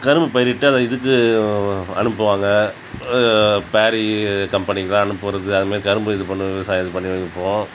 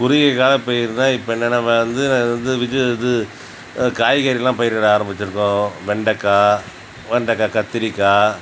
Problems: none marked